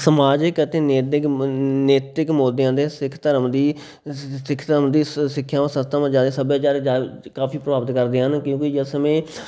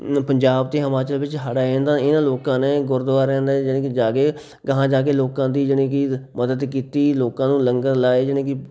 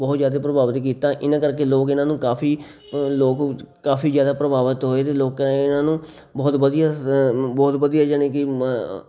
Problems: none marked